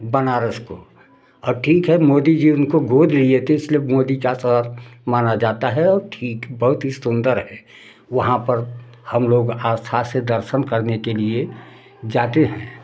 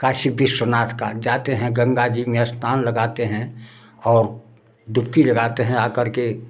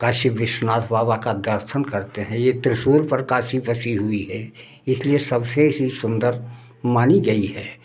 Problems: none marked